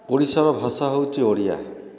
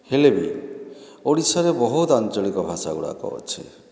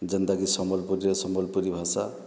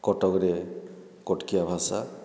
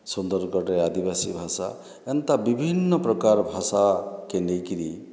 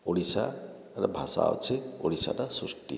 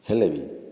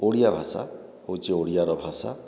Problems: background sounds at intervals